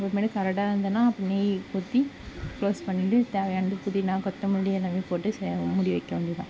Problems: constant background noise